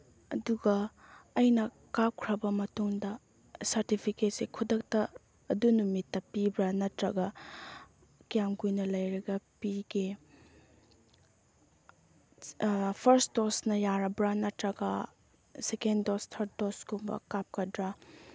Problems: low volume